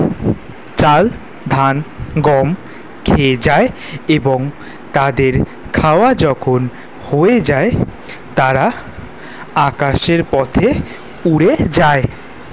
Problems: background sounds at intervals